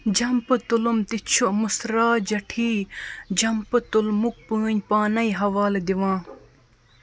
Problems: none marked